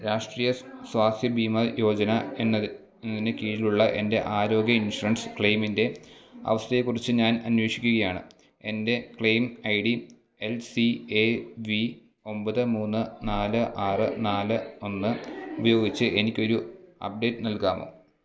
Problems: background sounds at intervals